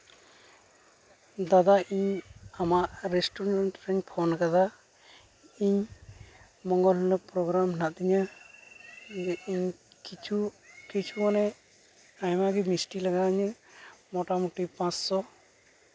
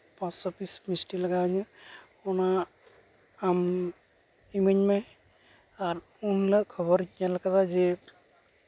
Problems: constant background noise